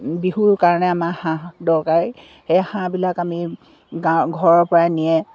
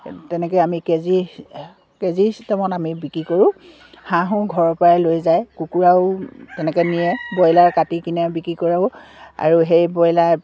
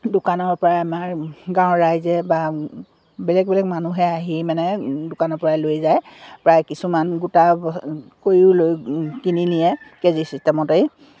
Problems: none marked